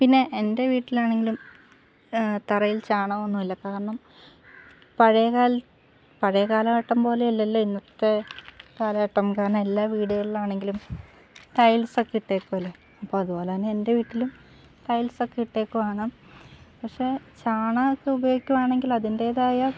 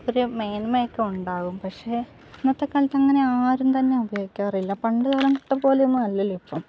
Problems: low volume